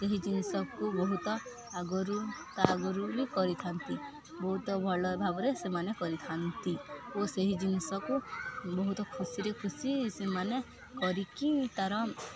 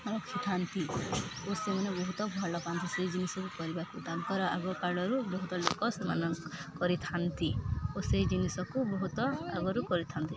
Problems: none marked